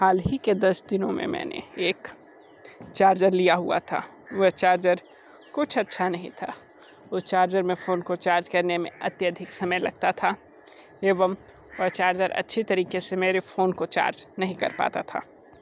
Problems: constant background noise